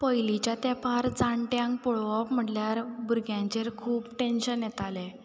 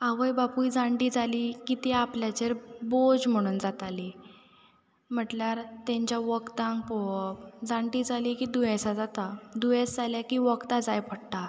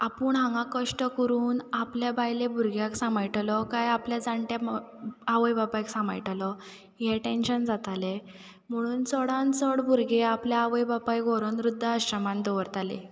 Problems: background sounds at intervals